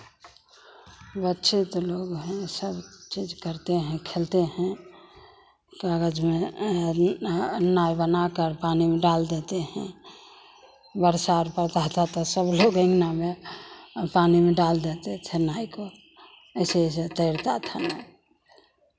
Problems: constant background noise, background conversations at intervals